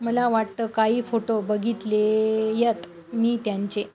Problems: constant background noise